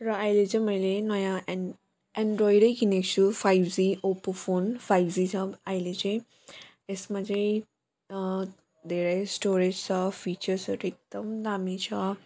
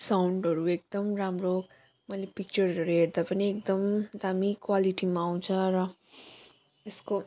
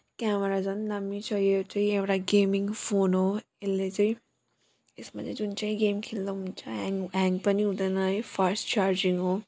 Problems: none marked